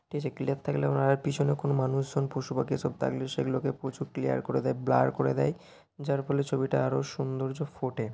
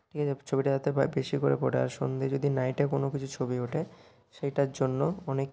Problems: constant background noise